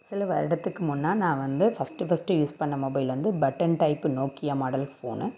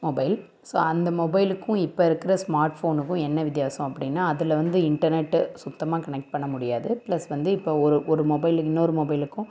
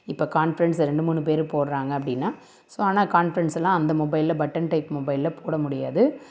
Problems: none marked